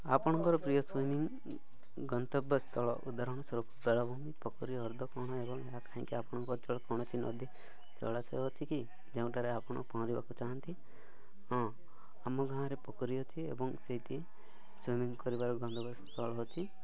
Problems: none marked